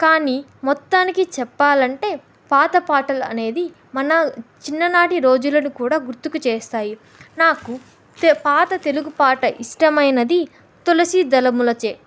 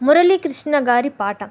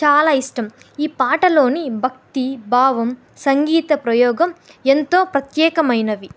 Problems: none marked